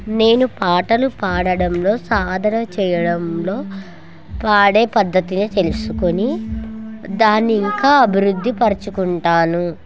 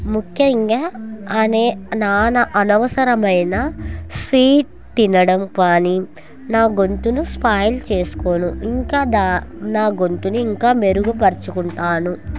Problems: continuous background conversations